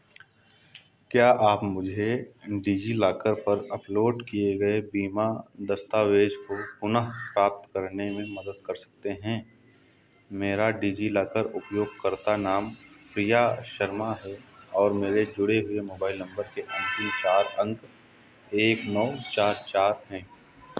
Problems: constant background noise